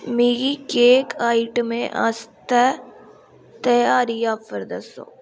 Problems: background sounds at intervals